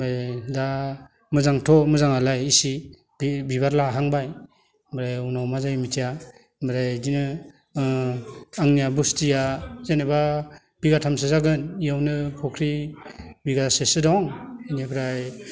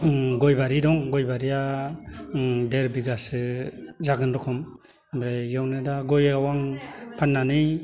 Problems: none marked